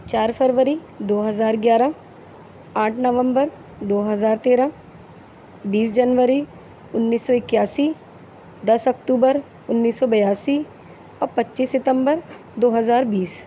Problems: none marked